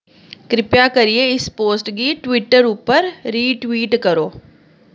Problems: none marked